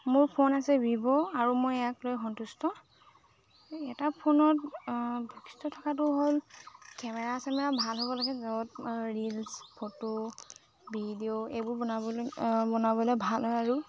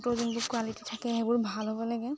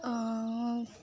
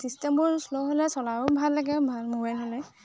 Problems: constant background noise, background conversations at intervals